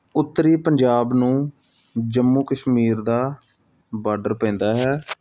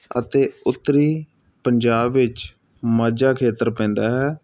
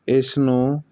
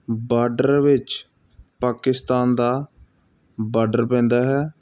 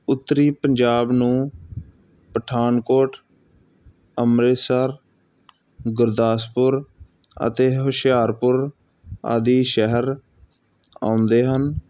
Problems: none marked